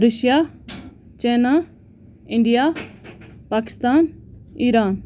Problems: constant background noise